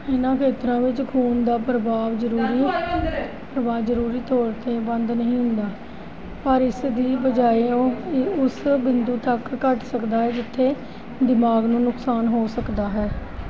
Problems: background conversations at intervals